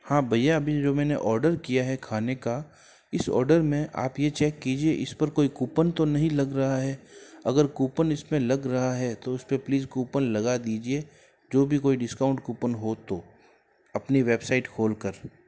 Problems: none marked